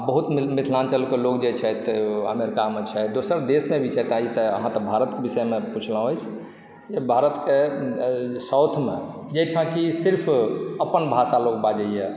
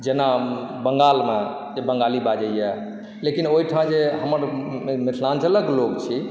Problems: background sounds at intervals